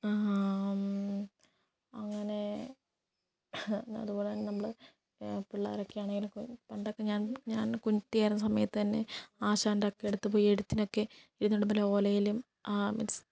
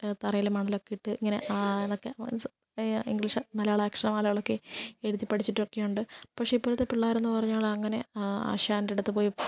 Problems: low volume